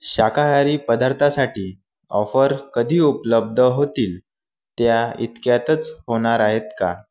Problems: background sounds at intervals